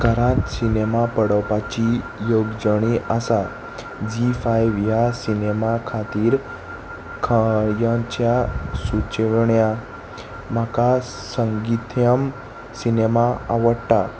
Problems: none marked